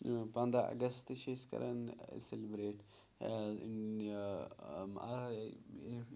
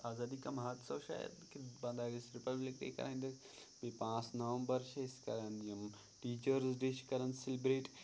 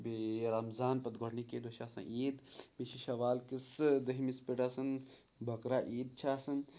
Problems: background sounds at intervals